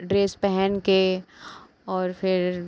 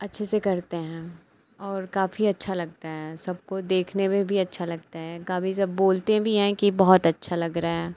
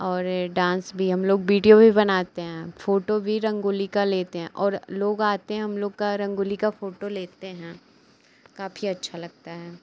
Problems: constant background noise